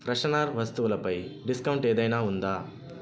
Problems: constant background noise, background conversations at intervals